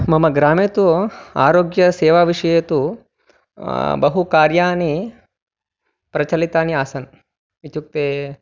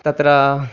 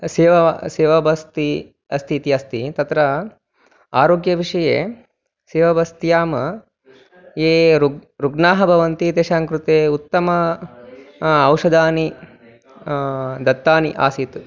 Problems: none marked